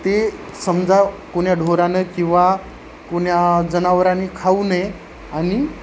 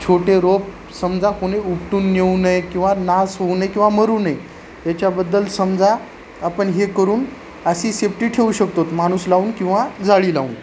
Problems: constant background noise